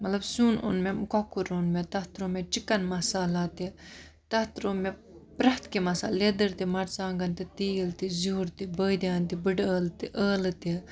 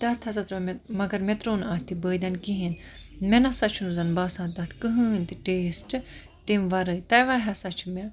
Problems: constant background noise